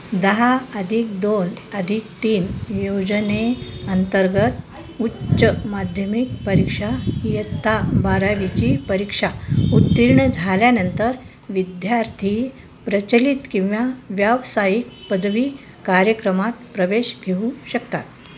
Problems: constant background noise